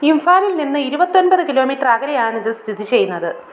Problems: background sounds at intervals